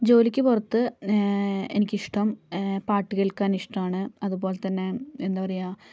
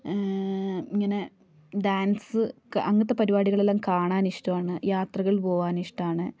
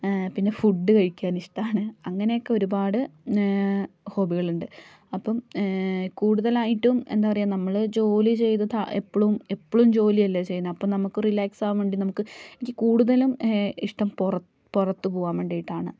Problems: none marked